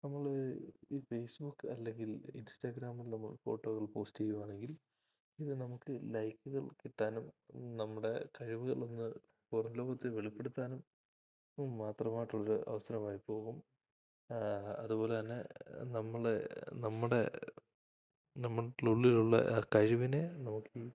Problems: low volume